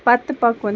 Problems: none marked